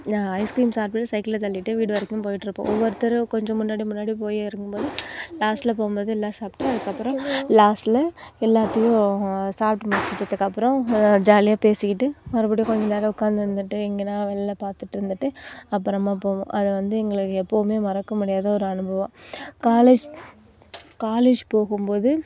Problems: constant background noise